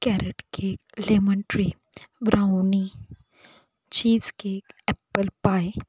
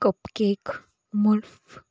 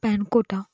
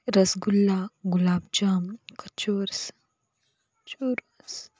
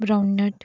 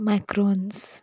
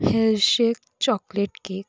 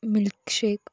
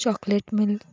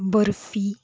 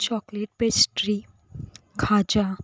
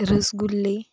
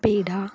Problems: none marked